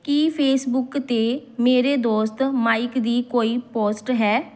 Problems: background sounds at intervals